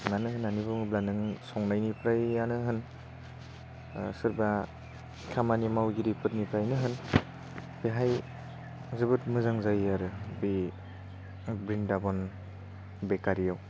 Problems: low volume